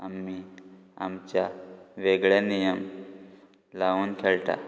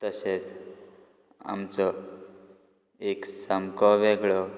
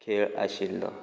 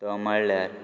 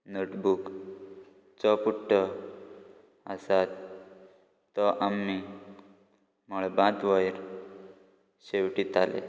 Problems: background sounds at intervals